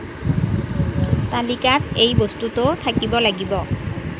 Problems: constant background noise